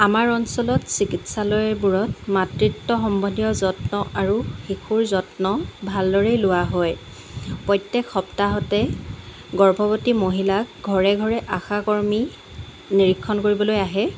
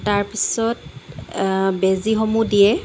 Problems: constant background noise